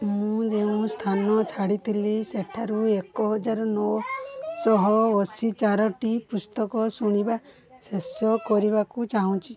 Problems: constant background noise, continuous background conversations